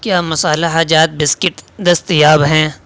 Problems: constant background noise